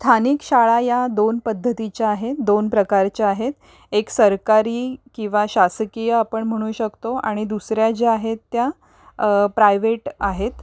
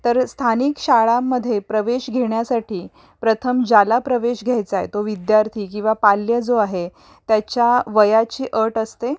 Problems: background sounds at intervals